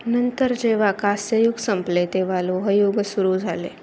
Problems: background sounds at intervals